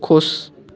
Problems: constant background noise